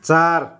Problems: background sounds at intervals